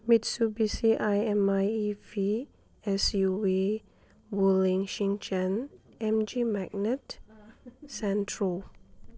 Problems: background sounds at intervals